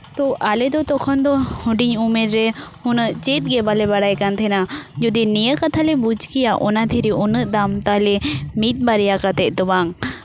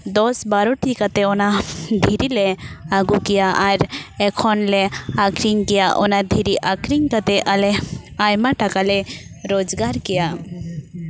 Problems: background sounds at intervals, background conversations at intervals